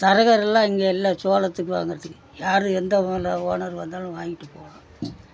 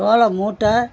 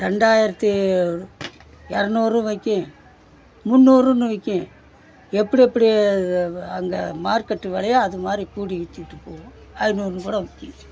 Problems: background conversations at intervals